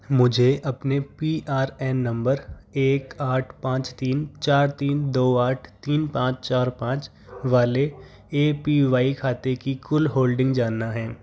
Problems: background sounds at intervals, background conversations at intervals